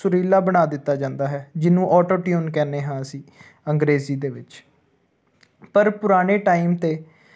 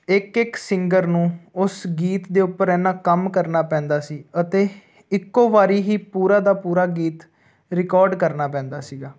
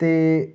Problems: none marked